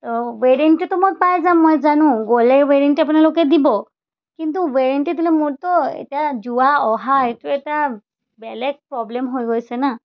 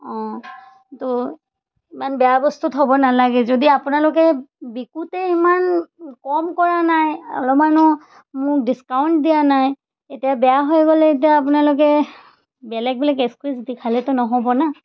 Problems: background sounds at intervals